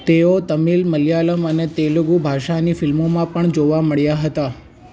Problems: background sounds at intervals